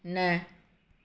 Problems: none marked